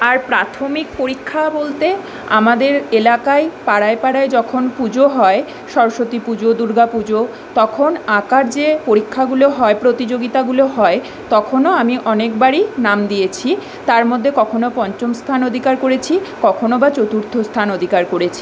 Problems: none marked